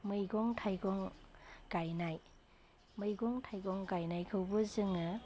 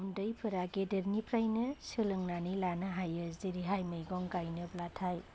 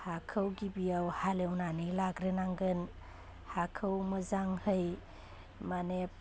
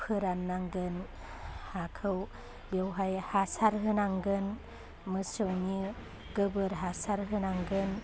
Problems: constant background noise